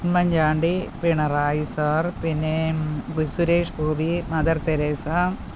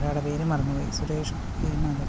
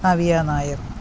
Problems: constant background noise, background conversations at intervals